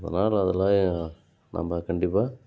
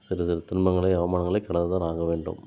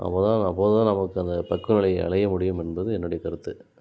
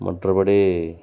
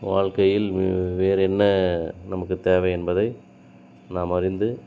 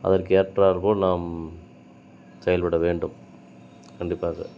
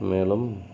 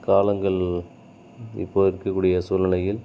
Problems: none marked